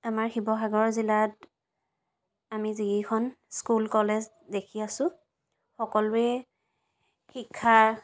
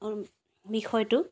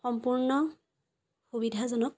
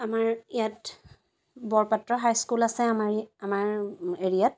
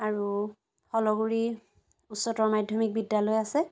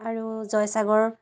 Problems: constant background noise